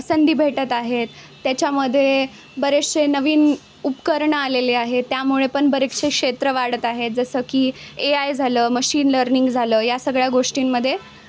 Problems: constant background noise, background conversations at intervals